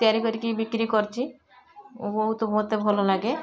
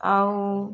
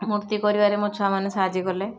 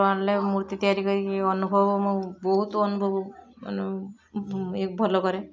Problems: constant background noise, continuous background conversations